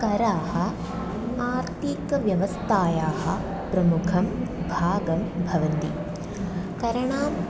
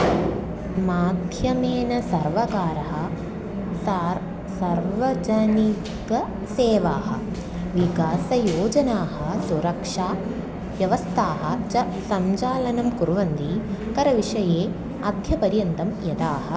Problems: none marked